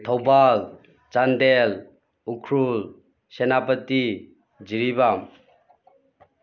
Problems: background sounds at intervals